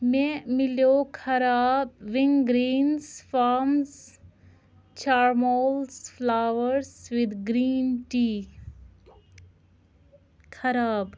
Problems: none marked